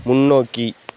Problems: background sounds at intervals